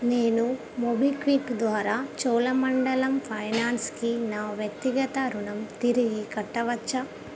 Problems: constant background noise